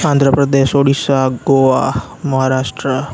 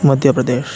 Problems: constant background noise